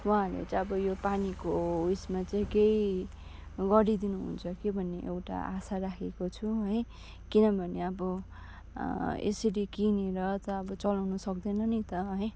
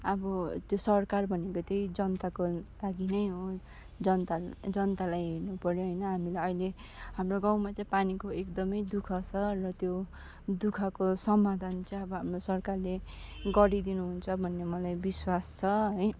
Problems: none marked